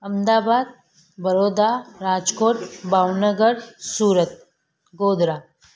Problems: constant background noise